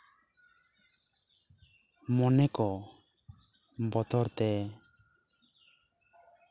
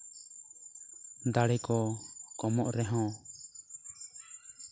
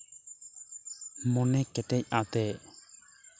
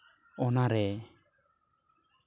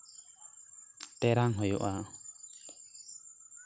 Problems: constant background noise, background conversations at intervals